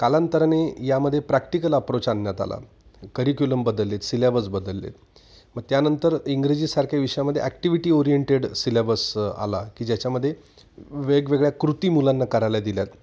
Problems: none marked